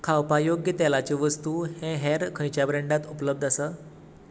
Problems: none marked